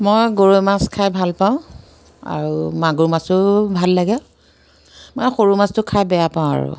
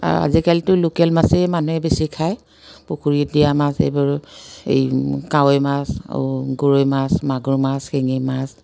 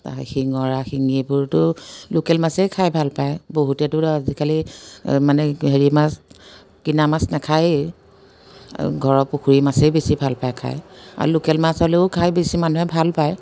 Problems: none marked